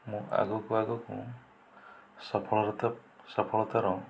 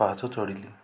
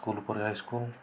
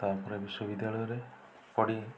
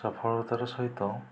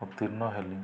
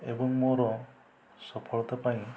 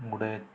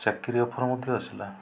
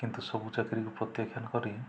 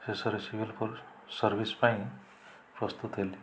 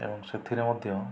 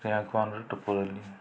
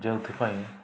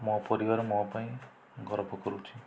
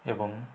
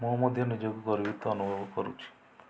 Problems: low volume